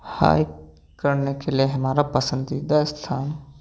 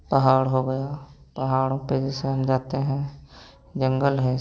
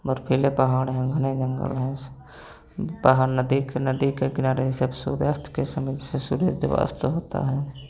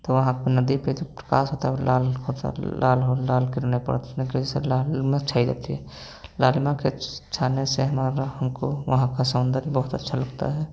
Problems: background sounds at intervals, background conversations at intervals